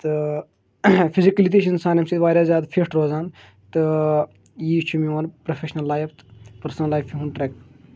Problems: constant background noise